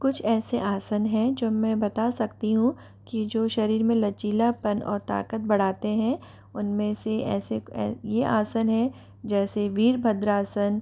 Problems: none marked